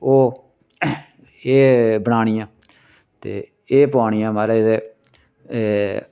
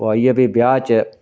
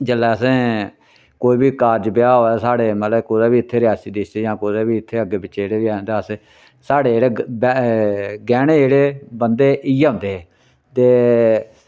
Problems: none marked